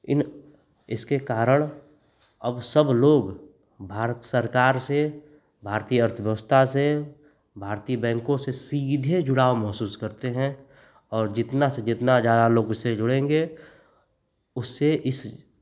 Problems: none marked